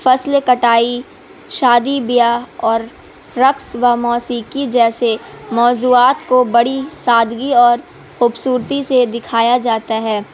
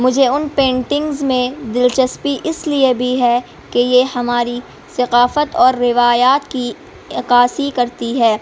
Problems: constant background noise